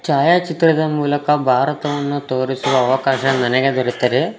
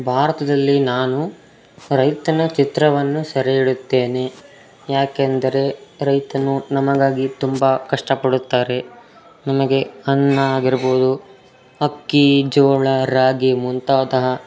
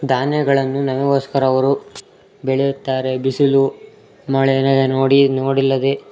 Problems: background sounds at intervals, background conversations at intervals